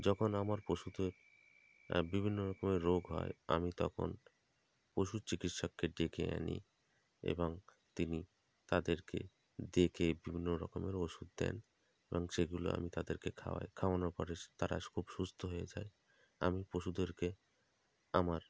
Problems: constant background noise